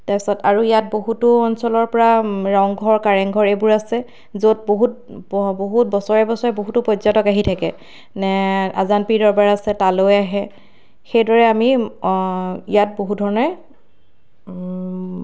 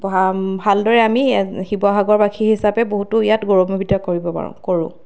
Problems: constant background noise